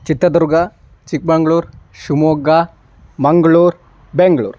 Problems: constant background noise